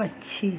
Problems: none marked